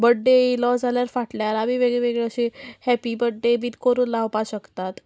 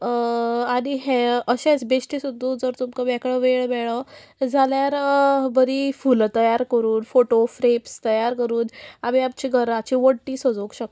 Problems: constant background noise